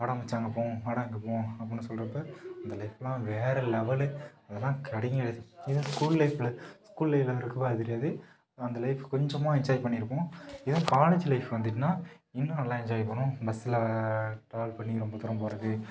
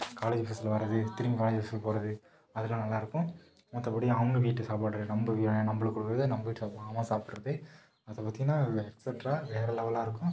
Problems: background sounds at intervals, low volume